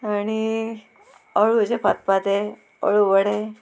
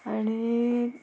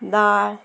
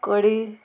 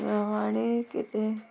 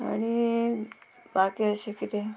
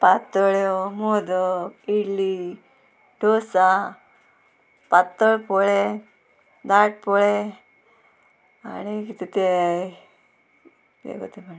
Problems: constant background noise